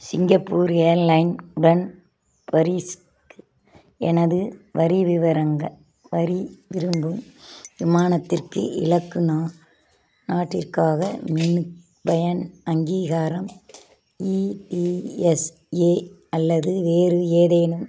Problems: background sounds at intervals